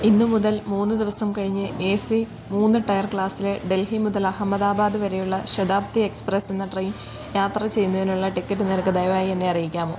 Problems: background sounds at intervals